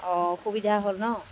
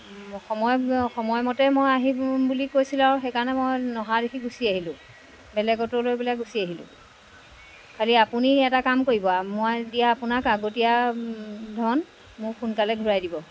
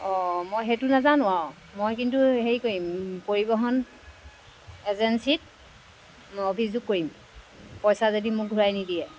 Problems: background sounds at intervals